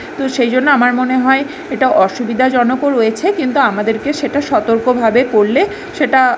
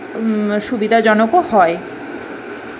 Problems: background sounds at intervals